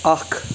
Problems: constant background noise